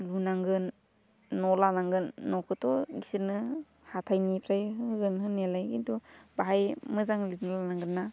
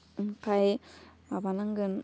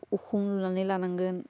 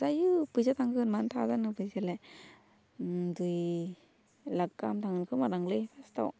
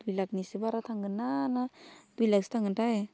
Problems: constant background noise